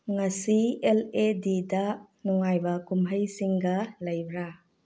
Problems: low volume